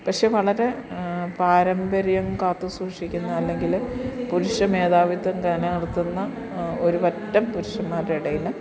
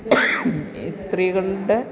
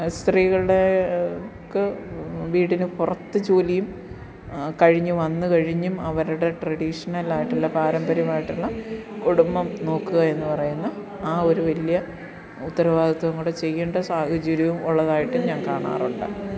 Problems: background sounds at intervals, background conversations at intervals